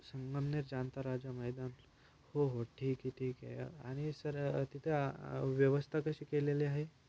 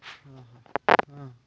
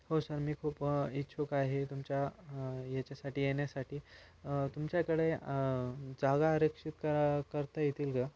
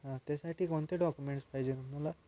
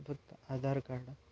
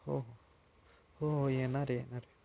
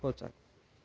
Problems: background sounds at intervals